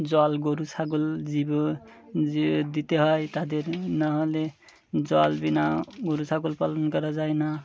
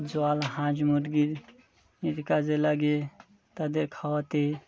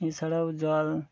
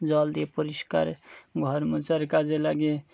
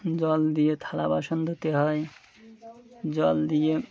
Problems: background sounds at intervals